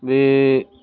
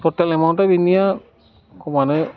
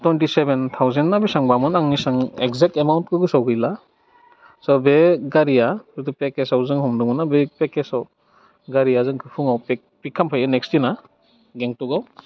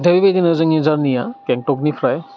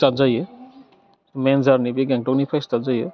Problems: low volume